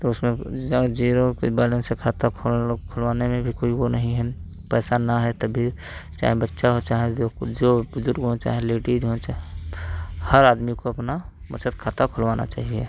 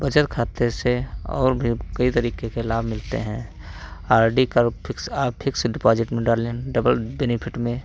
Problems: constant background noise, background conversations at intervals